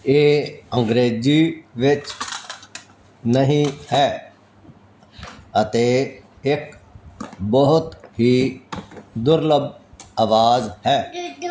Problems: none marked